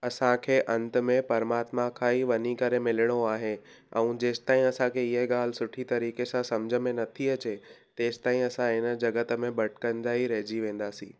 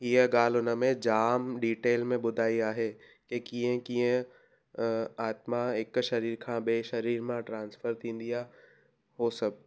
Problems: none marked